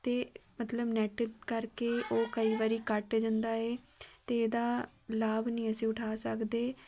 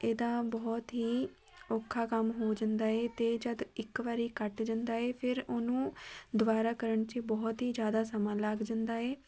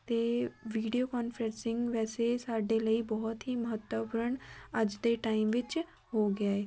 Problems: none marked